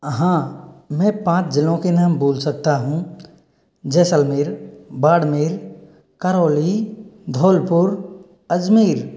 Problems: none marked